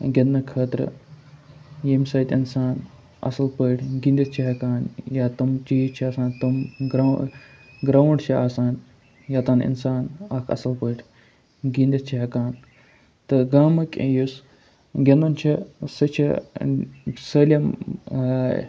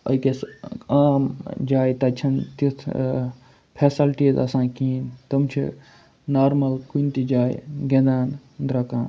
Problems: none marked